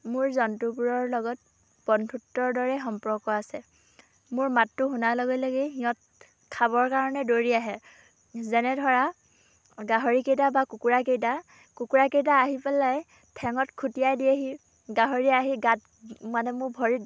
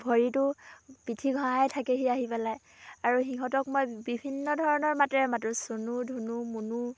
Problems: background conversations at intervals